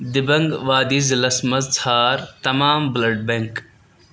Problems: none marked